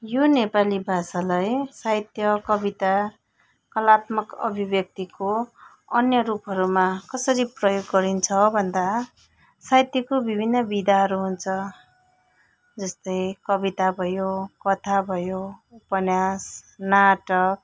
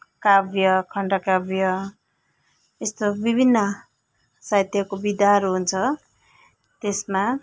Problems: none marked